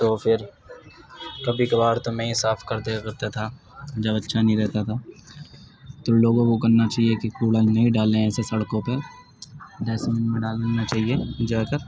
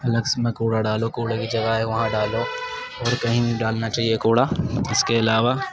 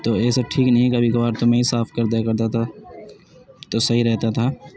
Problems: constant background noise, continuous background conversations